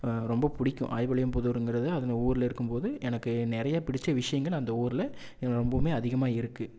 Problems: none marked